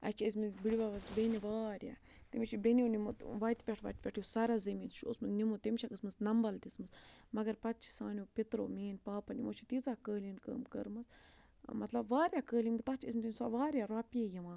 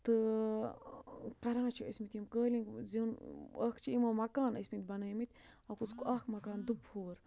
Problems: low volume